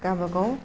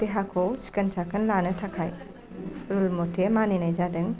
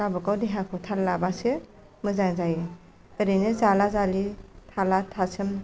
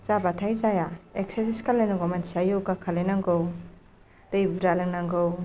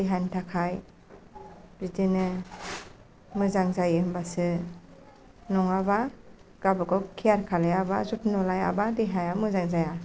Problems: none marked